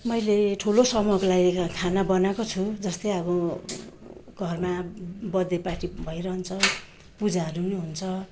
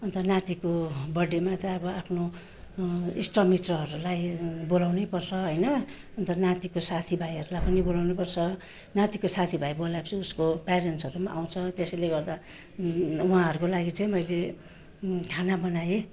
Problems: none marked